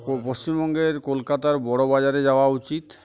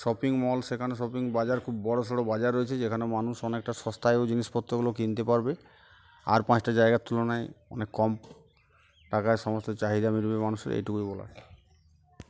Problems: constant background noise, background conversations at intervals